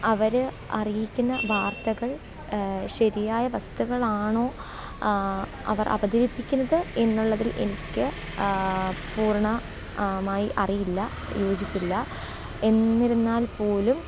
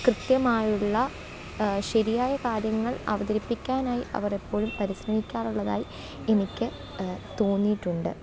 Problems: background sounds at intervals, low volume